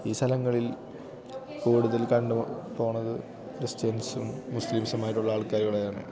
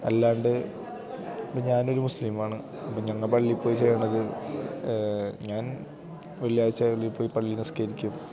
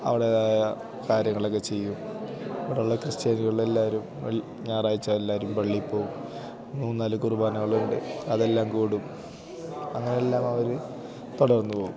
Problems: constant background noise, low volume